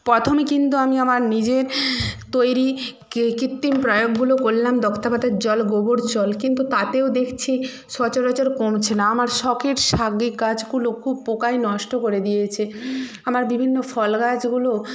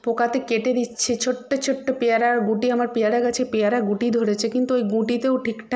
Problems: none marked